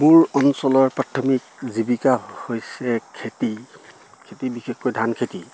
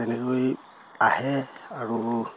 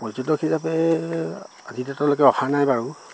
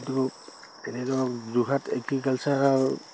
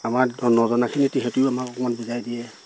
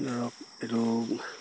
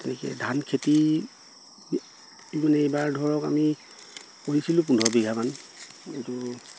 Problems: constant background noise